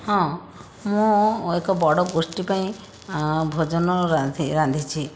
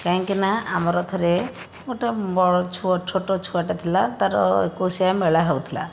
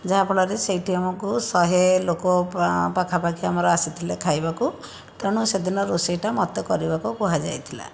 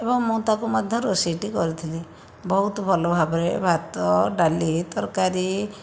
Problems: constant background noise